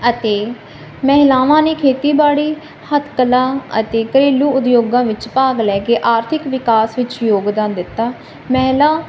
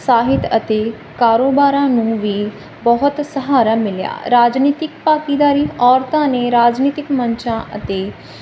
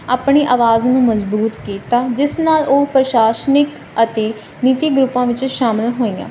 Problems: constant background noise